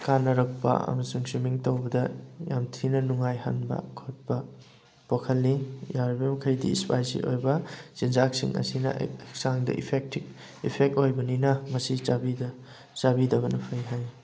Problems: background sounds at intervals